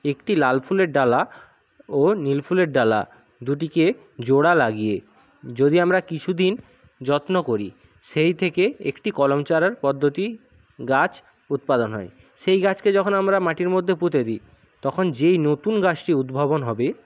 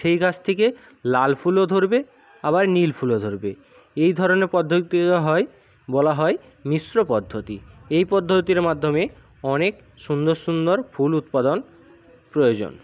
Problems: none marked